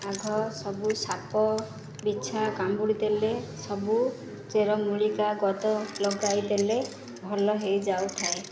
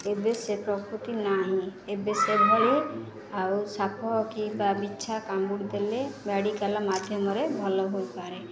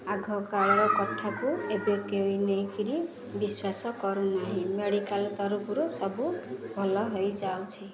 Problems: constant background noise